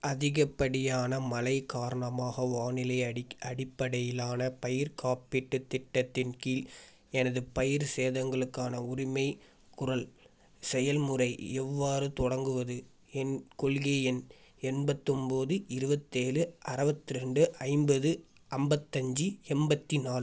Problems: background sounds at intervals